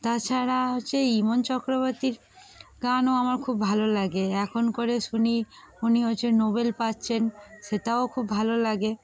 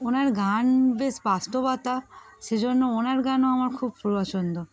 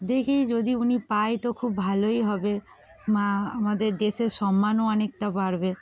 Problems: background sounds at intervals